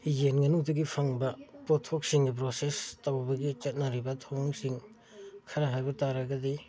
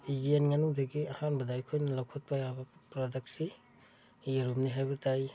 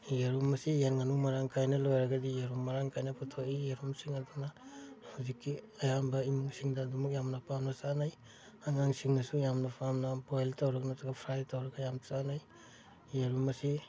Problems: background conversations at intervals